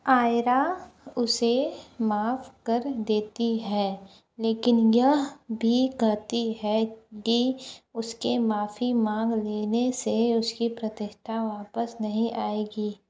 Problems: low volume